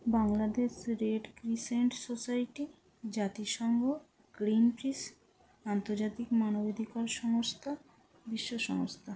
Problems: low volume